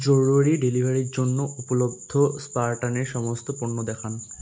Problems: constant background noise